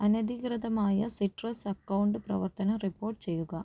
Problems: low volume